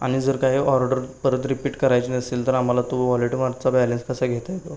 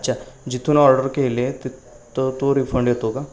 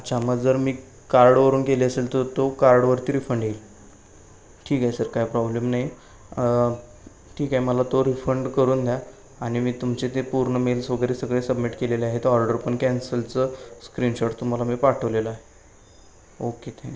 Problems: constant background noise, background conversations at intervals